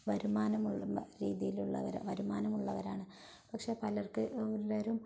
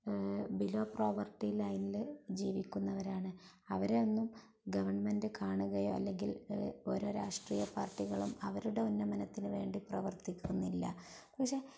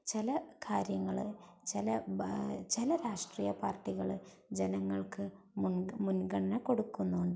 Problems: low volume